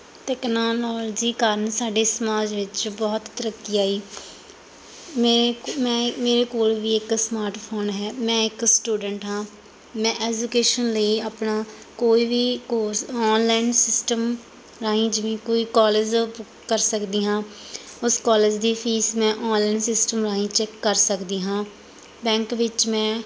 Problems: background sounds at intervals